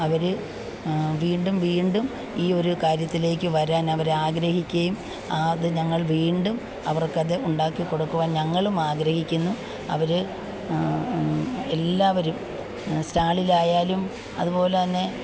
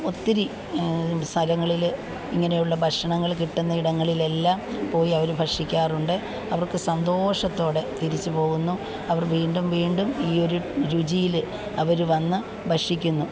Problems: background sounds at intervals, background conversations at intervals